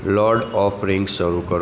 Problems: constant background noise